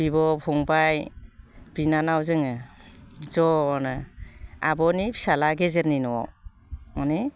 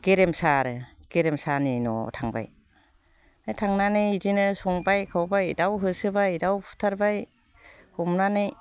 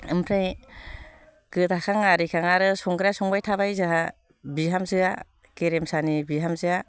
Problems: constant background noise